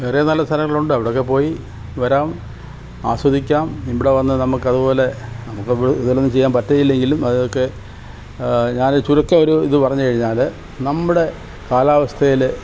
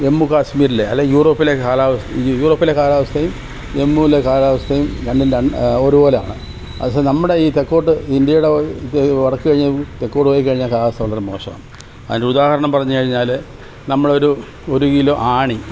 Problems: constant background noise, background conversations at intervals